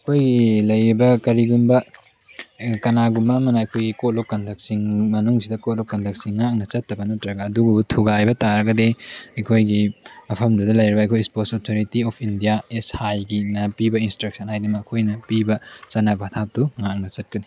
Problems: none marked